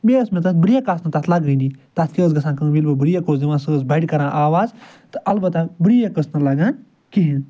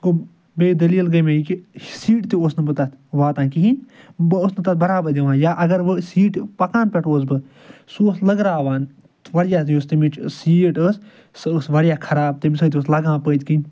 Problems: none marked